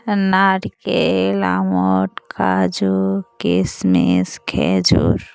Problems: none marked